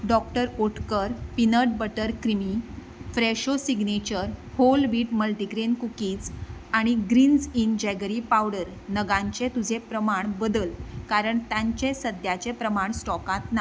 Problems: background sounds at intervals